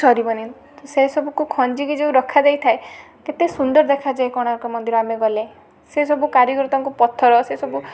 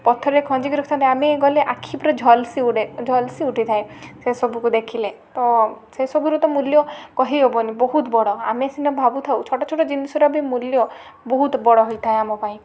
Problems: constant background noise